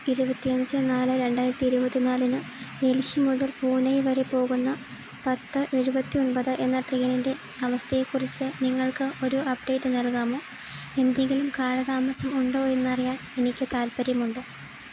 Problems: constant background noise